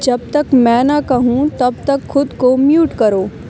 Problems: constant background noise